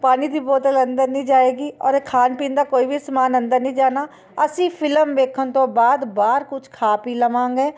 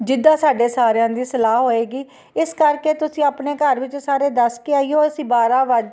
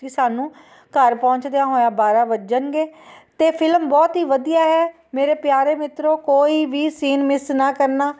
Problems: constant background noise